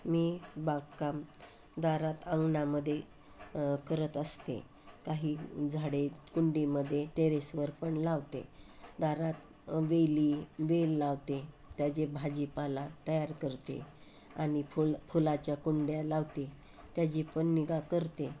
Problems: constant background noise